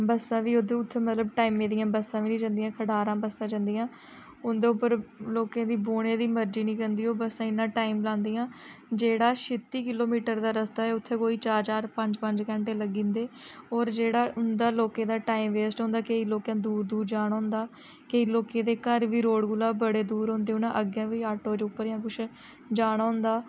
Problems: low volume